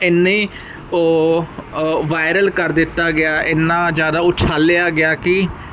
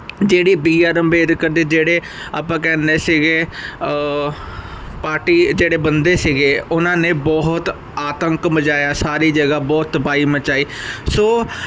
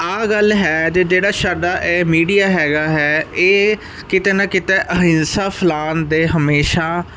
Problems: constant background noise